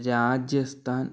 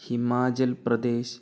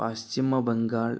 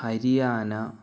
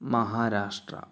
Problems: low volume